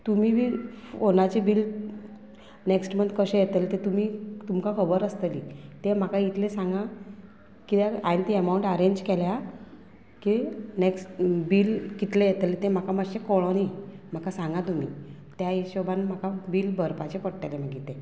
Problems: constant background noise